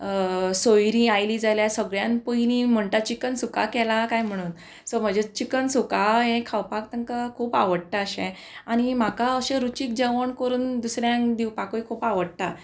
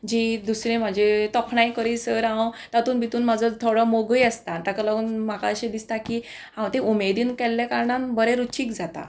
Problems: none marked